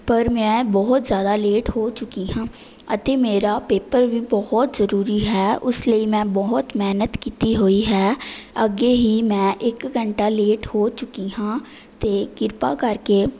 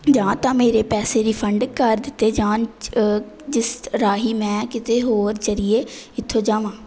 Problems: none marked